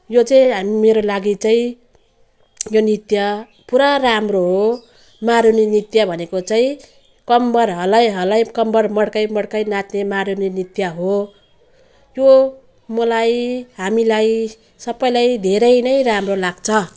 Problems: none marked